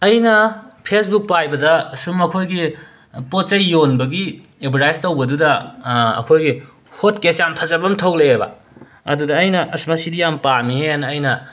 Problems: none marked